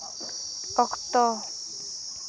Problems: none marked